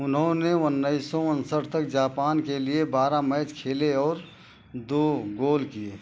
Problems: constant background noise